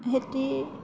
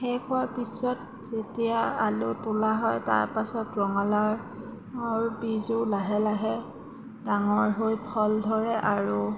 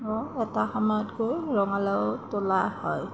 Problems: none marked